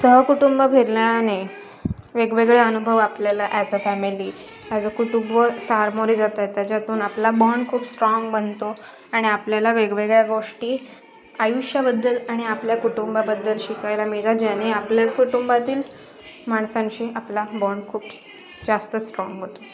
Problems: constant background noise, continuous background conversations